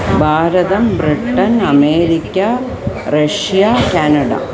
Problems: background sounds at intervals